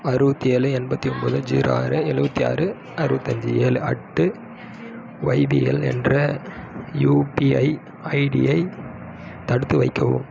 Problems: background sounds at intervals